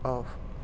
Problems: low volume